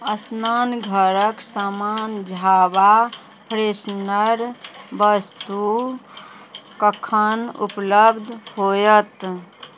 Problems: none marked